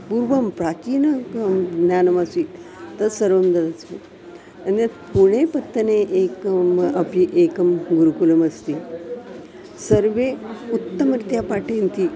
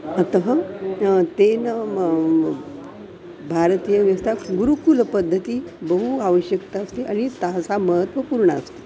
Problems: constant background noise, continuous background conversations